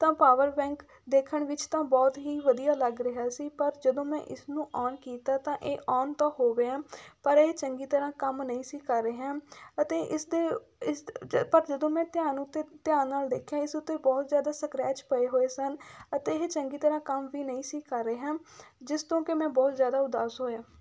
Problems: background sounds at intervals